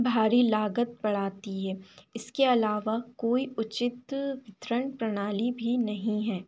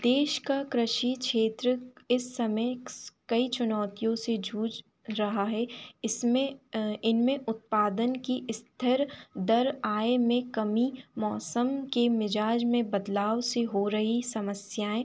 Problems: constant background noise